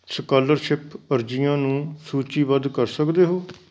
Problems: background sounds at intervals